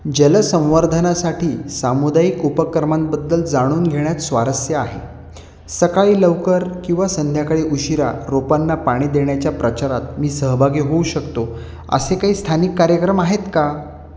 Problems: none marked